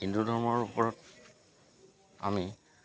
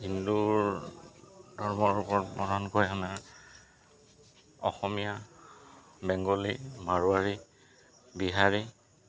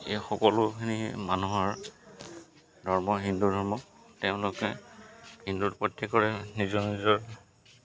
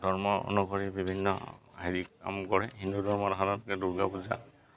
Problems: constant background noise